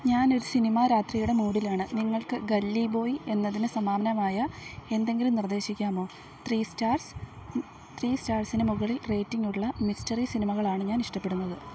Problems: none marked